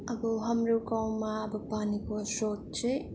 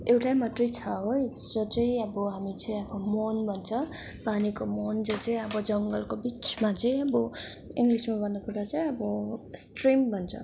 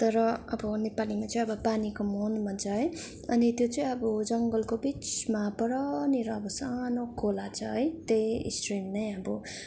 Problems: background sounds at intervals